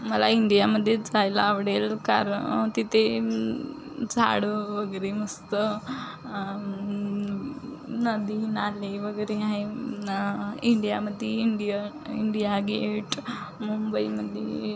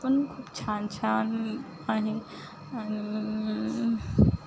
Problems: constant background noise